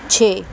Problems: none marked